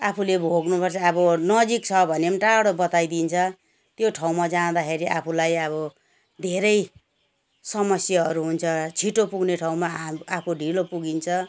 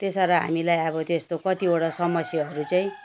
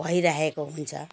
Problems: none marked